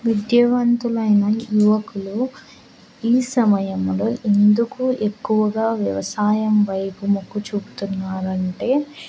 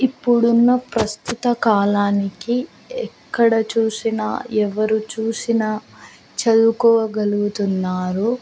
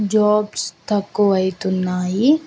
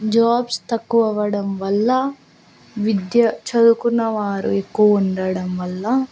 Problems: constant background noise